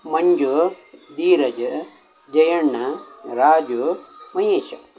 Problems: constant background noise